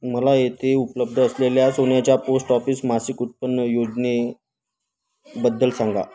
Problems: constant background noise, continuous background conversations